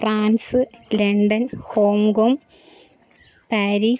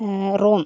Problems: background sounds at intervals